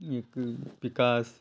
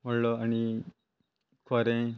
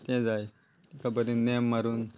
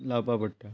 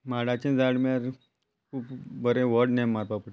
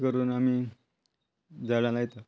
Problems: constant background noise